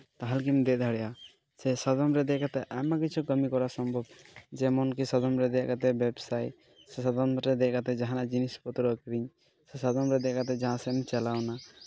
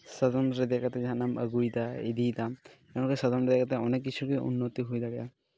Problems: background sounds at intervals